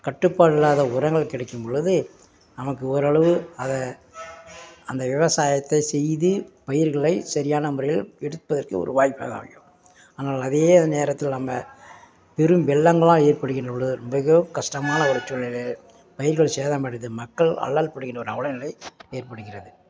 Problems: background sounds at intervals